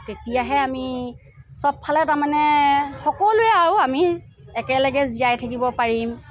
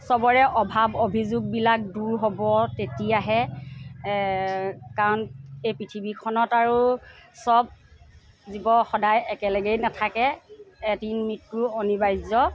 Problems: constant background noise, background conversations at intervals